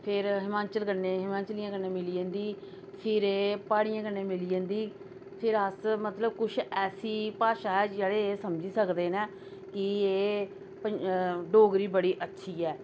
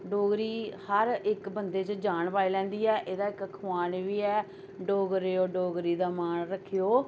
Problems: none marked